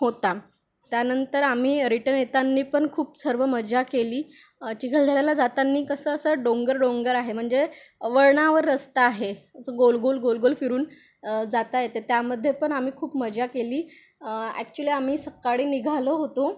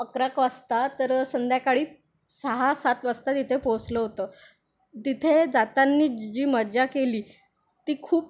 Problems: background sounds at intervals